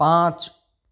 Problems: none marked